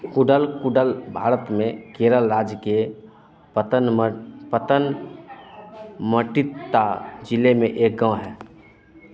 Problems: constant background noise